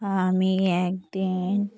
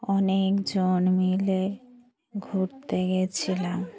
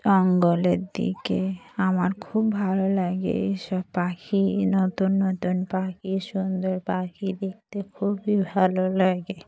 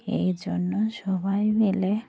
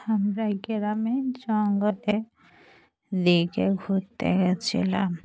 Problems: none marked